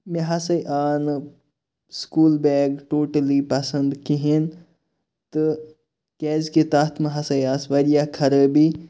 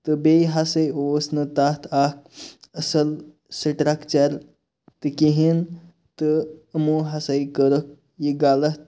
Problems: background sounds at intervals